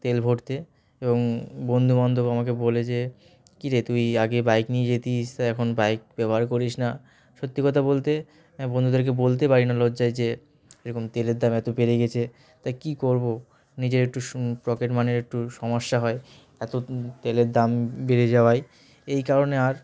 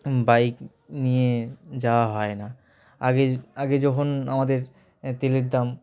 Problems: constant background noise, continuous background conversations